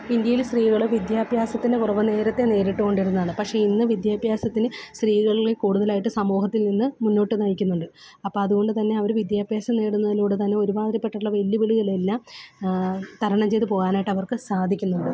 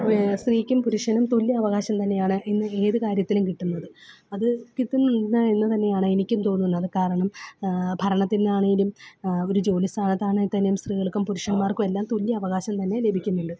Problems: background sounds at intervals